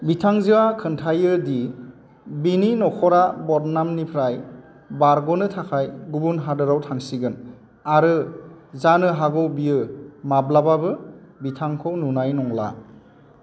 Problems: constant background noise